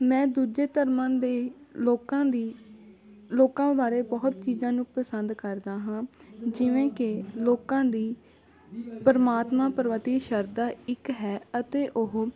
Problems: continuous background conversations